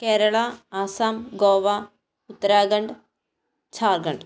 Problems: none marked